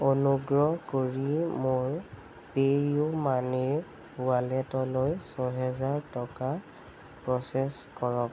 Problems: none marked